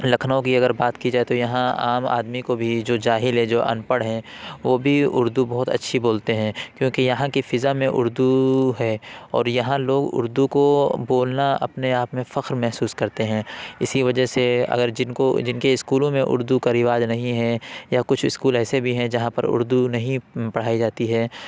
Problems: constant background noise, background conversations at intervals